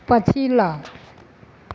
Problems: none marked